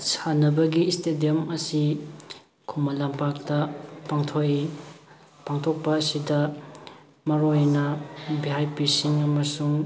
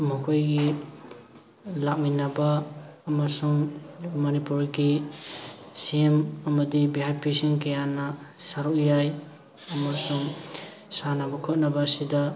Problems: background sounds at intervals, background conversations at intervals